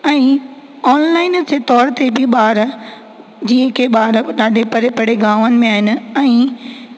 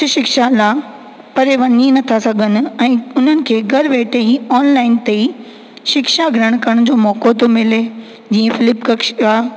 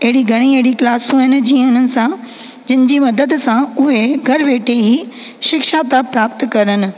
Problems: constant background noise, echo